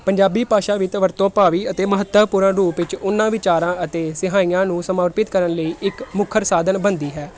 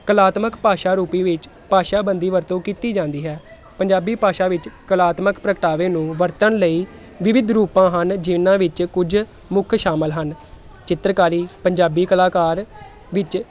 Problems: none marked